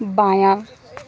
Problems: none marked